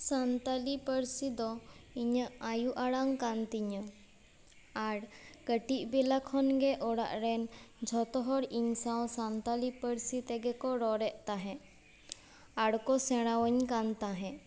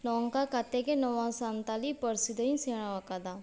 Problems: none marked